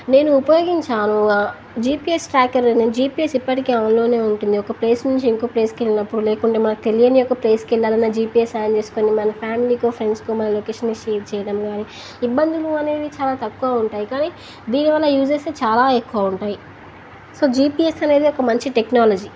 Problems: constant background noise